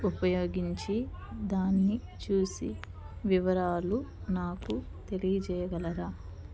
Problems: background sounds at intervals, low volume